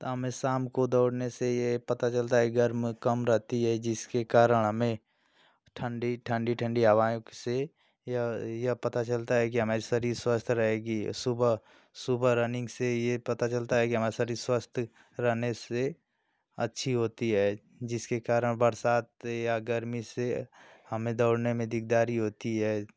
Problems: constant background noise